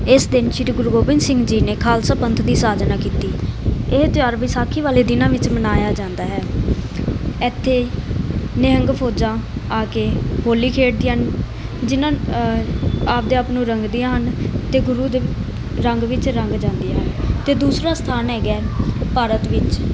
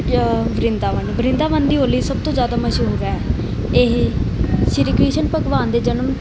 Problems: constant background noise